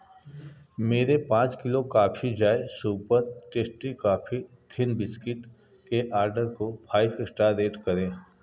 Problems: none marked